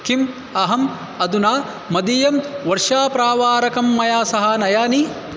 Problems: none marked